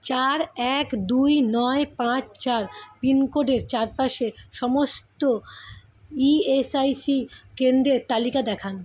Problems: background sounds at intervals